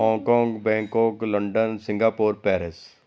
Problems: none marked